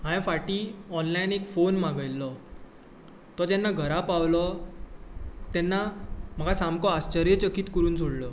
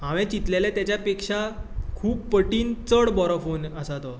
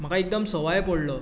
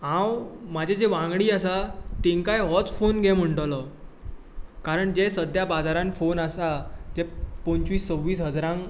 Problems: none marked